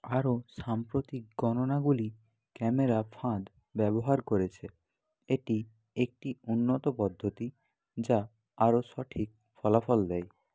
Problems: low volume